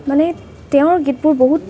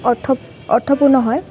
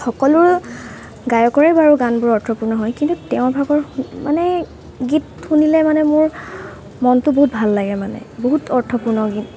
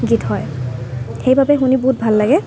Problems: constant background noise